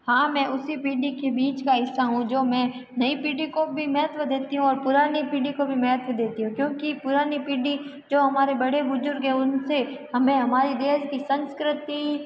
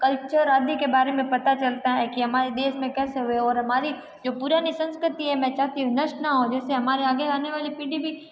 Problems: background sounds at intervals